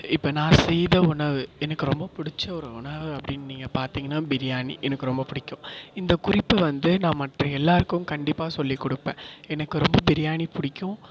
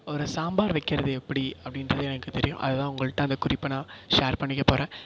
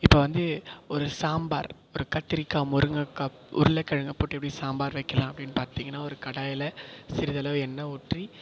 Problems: echo